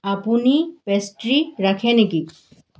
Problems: background sounds at intervals